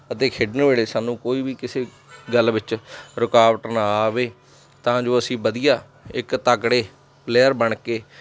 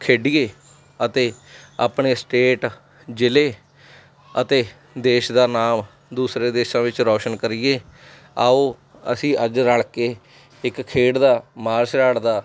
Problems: constant background noise